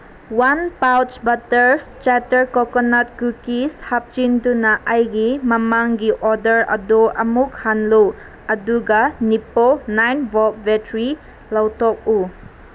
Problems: constant background noise